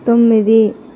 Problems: none marked